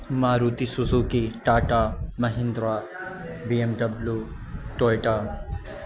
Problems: constant background noise